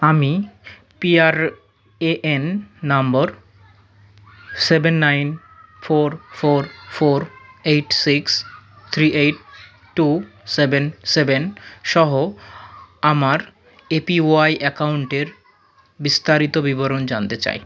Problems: none marked